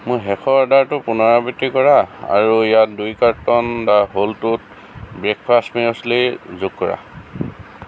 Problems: constant background noise